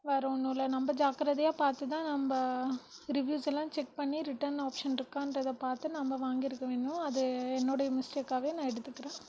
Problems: background sounds at intervals, low volume